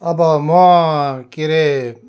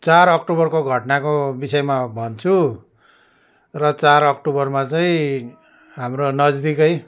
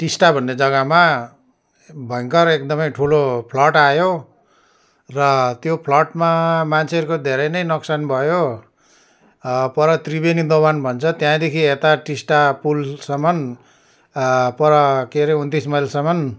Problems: none marked